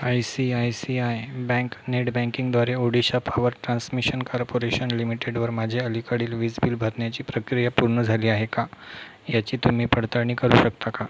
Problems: none marked